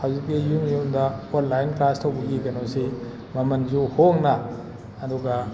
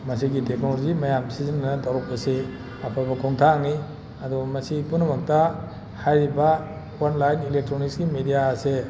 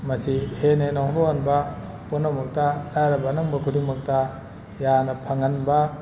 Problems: none marked